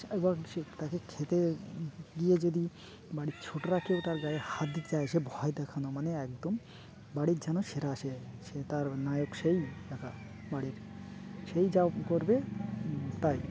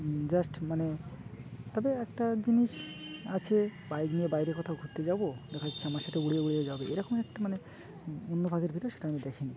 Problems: constant background noise, continuous background conversations